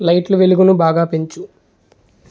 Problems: none marked